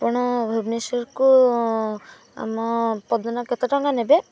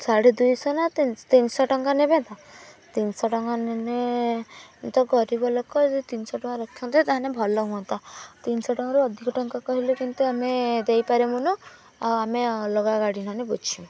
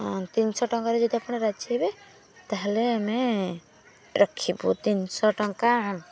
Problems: background sounds at intervals